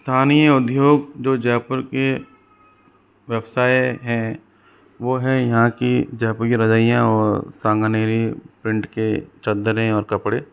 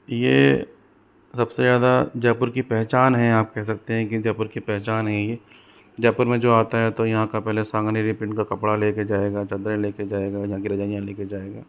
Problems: none marked